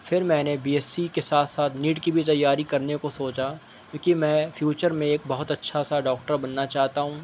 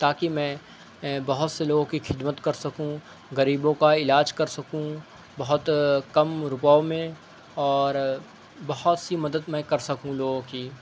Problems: background sounds at intervals